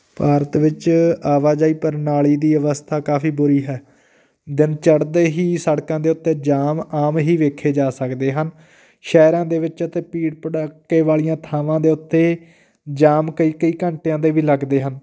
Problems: background sounds at intervals